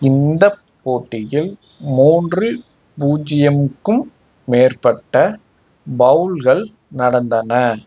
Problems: background sounds at intervals